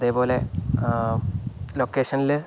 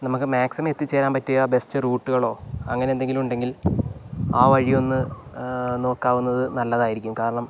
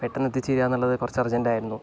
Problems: low volume